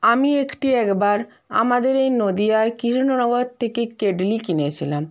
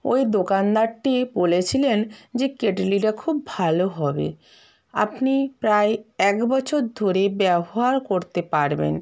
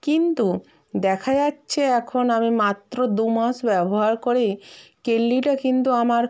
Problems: none marked